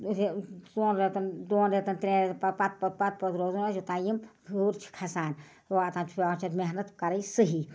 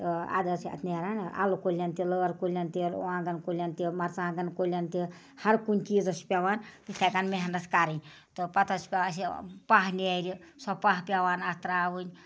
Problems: none marked